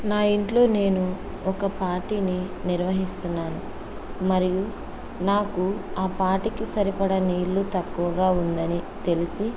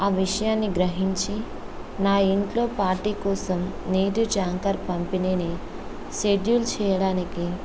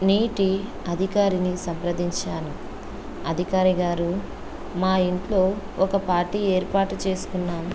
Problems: constant background noise